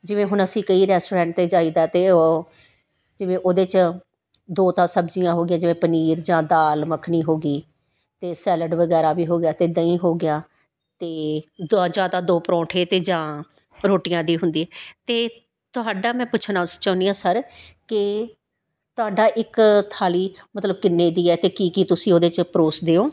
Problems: background sounds at intervals